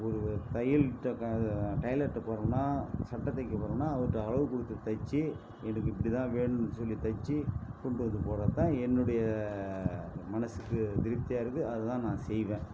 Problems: background sounds at intervals